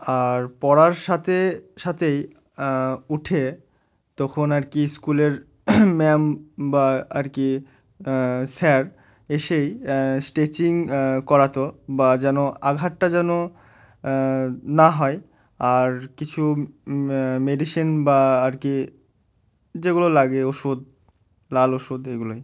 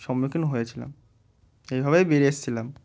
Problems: none marked